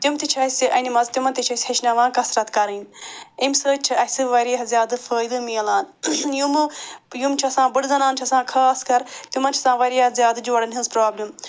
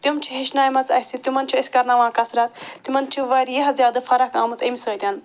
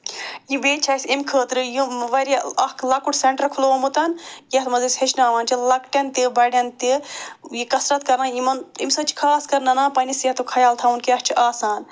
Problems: none marked